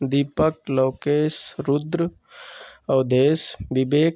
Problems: none marked